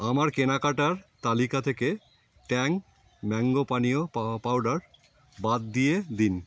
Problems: background sounds at intervals